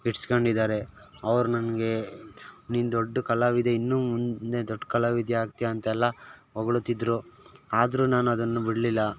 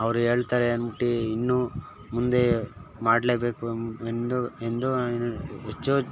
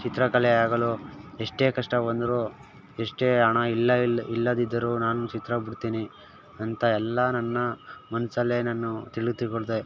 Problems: none marked